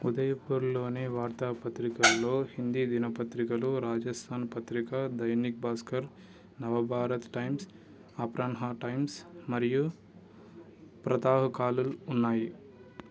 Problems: background sounds at intervals